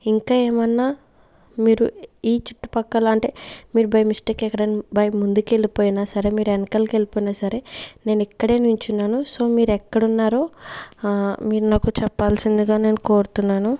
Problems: background sounds at intervals